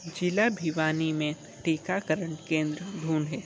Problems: constant background noise